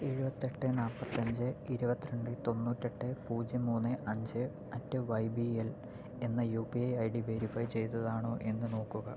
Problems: constant background noise, low volume